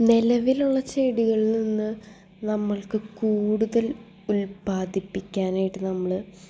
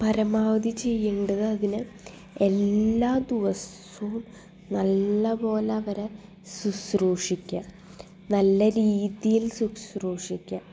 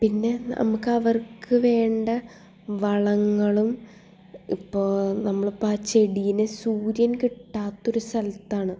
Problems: background sounds at intervals